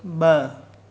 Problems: constant background noise, echo